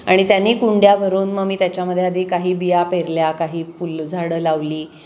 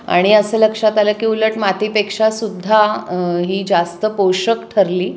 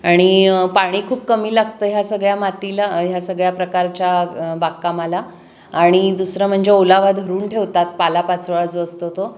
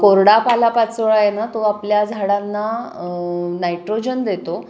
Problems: constant background noise, background conversations at intervals, echo